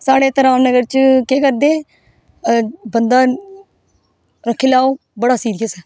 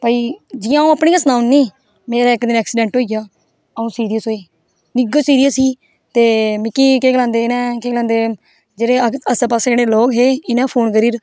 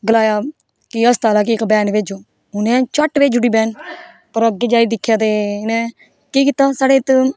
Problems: none marked